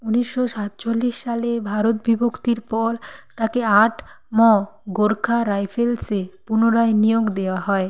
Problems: none marked